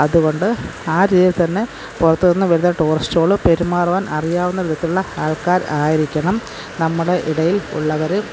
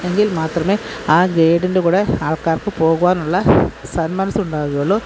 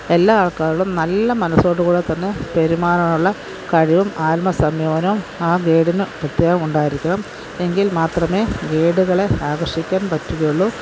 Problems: none marked